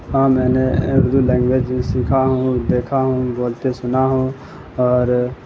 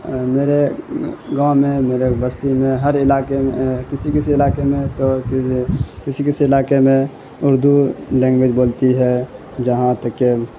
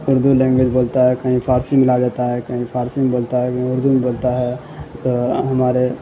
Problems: constant background noise